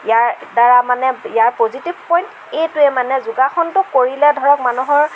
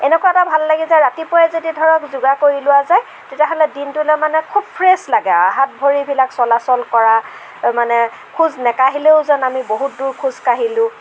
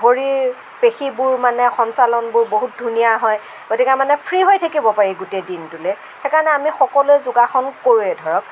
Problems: none marked